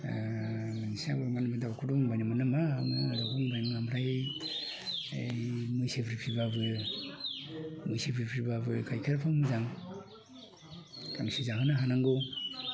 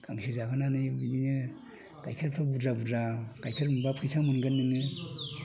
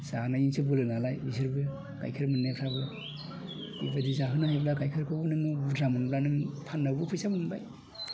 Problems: constant background noise